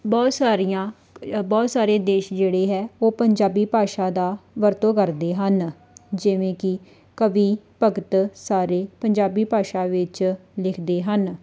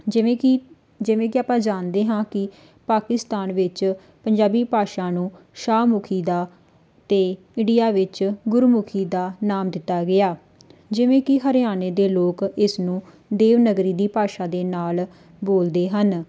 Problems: background sounds at intervals